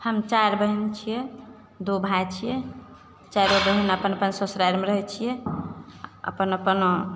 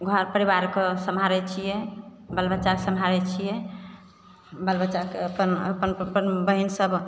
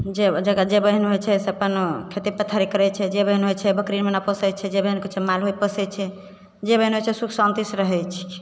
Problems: none marked